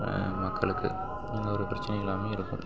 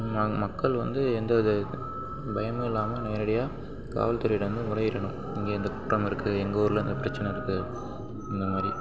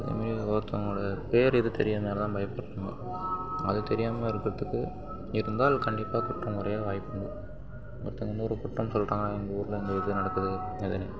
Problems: background sounds at intervals, low volume